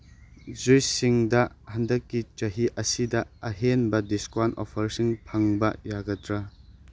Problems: background sounds at intervals